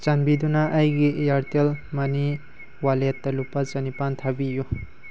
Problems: constant background noise